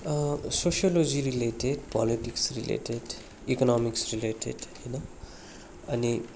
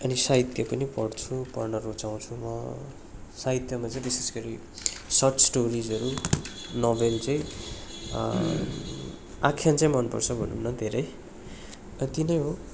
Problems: constant background noise